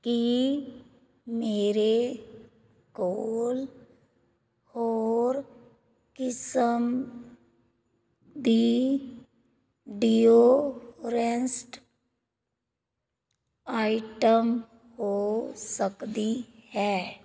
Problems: none marked